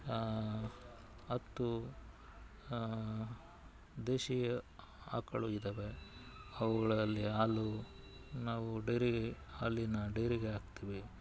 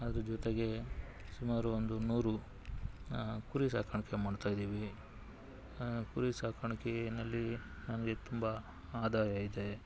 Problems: background sounds at intervals